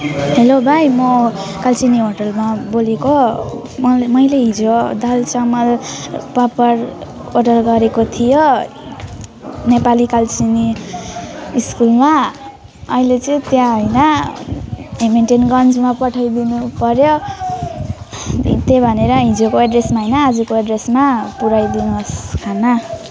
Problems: none marked